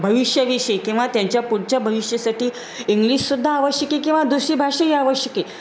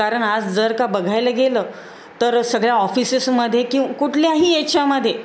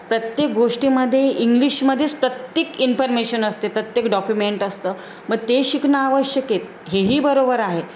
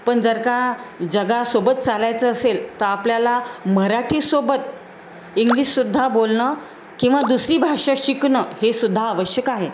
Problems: none marked